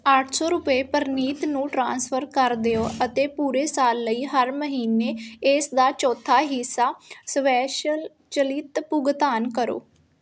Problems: none marked